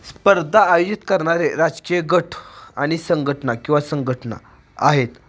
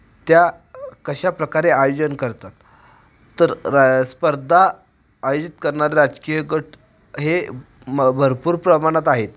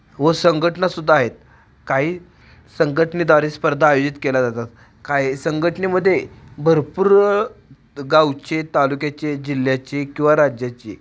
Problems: none marked